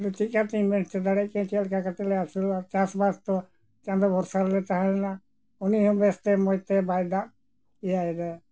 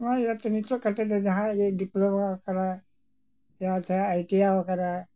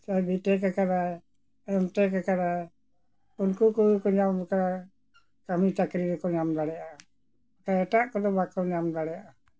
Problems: none marked